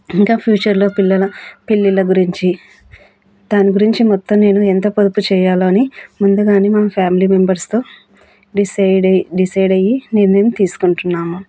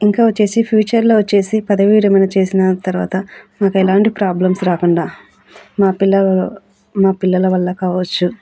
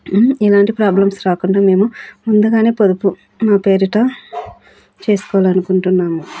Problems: constant background noise